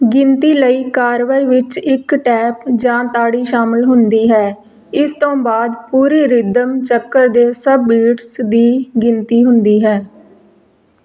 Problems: none marked